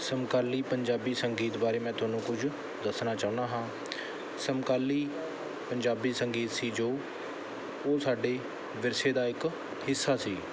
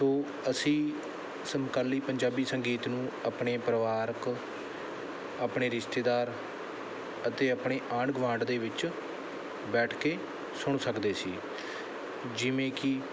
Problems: background sounds at intervals